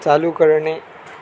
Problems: constant background noise